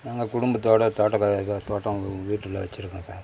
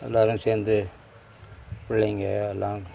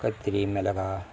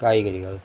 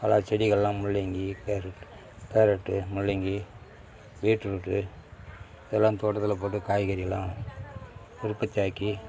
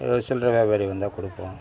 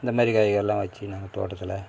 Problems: none marked